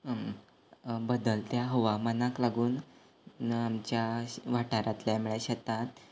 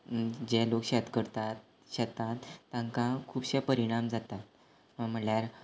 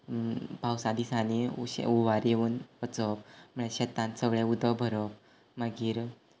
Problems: none marked